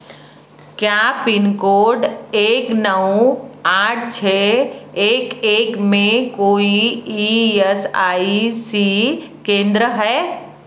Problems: none marked